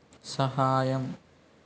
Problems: none marked